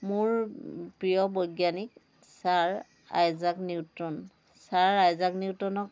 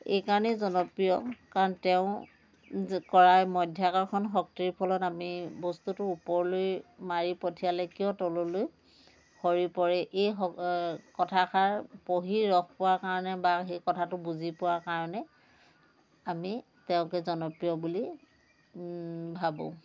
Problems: none marked